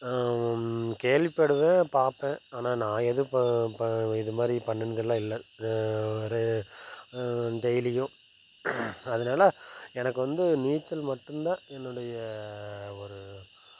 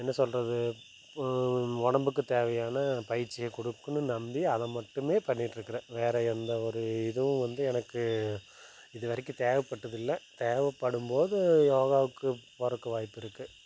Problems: constant background noise